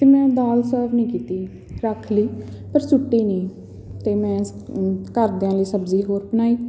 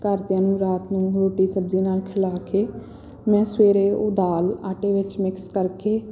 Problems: background sounds at intervals, background conversations at intervals